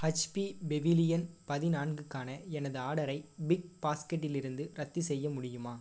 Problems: low volume